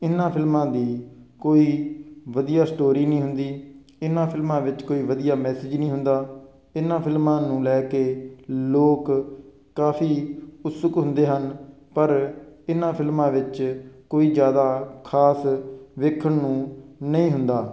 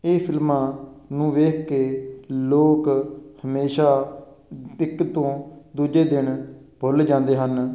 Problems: constant background noise